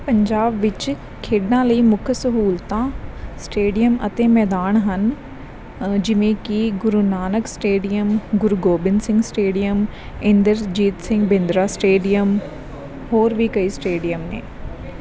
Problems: background sounds at intervals